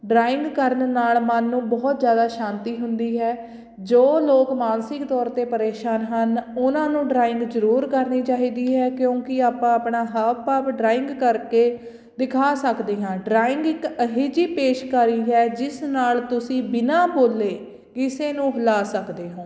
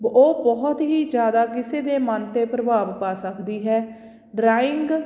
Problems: background sounds at intervals